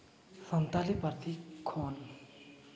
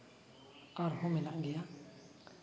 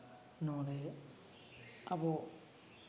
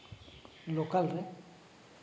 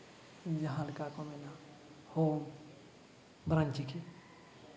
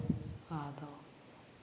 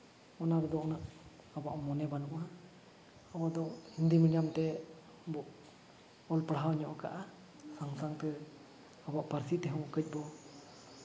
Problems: none marked